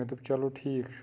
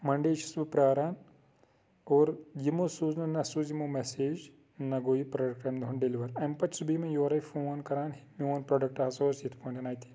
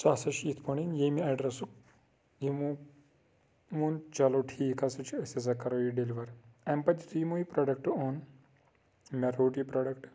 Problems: constant background noise